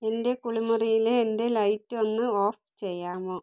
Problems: none marked